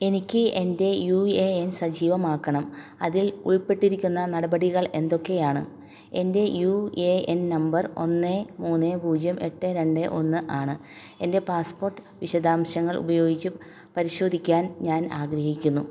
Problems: none marked